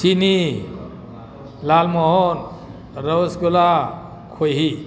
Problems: none marked